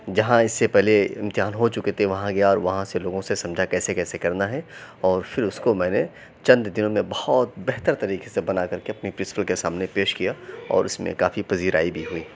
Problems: background sounds at intervals